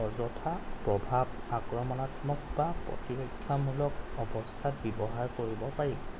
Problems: none marked